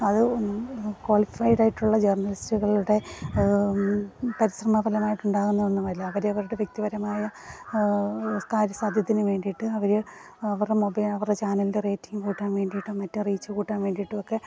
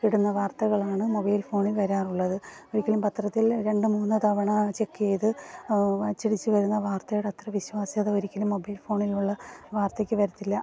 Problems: background sounds at intervals, background conversations at intervals